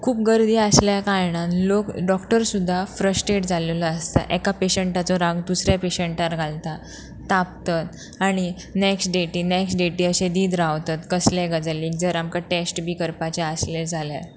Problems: background sounds at intervals